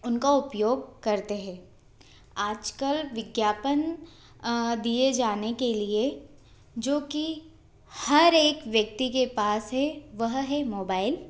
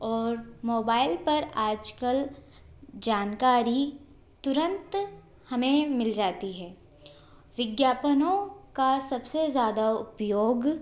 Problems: constant background noise